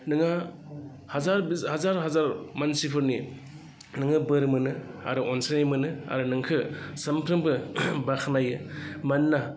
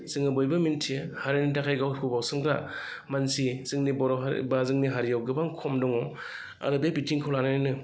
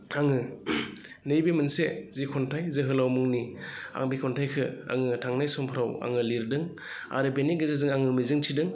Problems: none marked